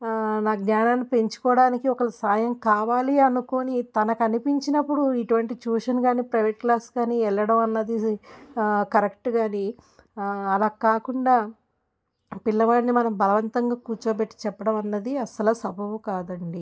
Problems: none marked